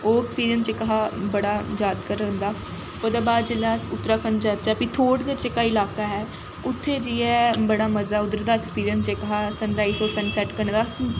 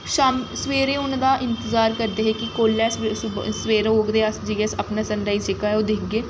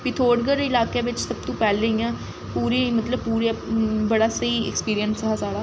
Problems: constant background noise